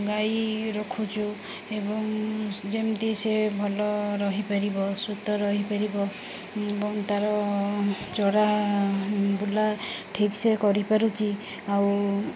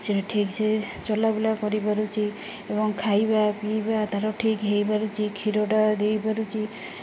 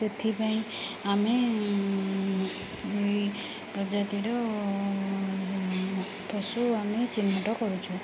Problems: none marked